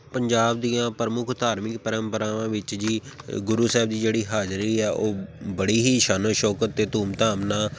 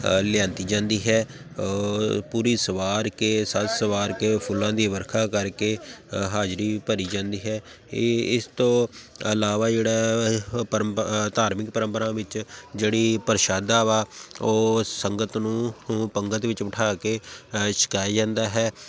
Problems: background sounds at intervals